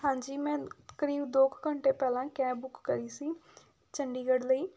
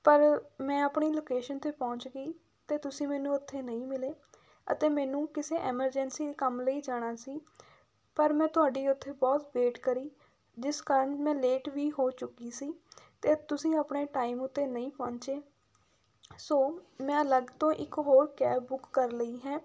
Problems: background sounds at intervals